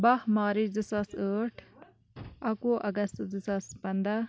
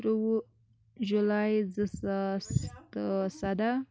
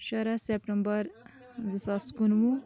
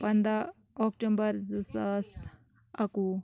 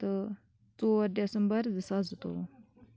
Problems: none marked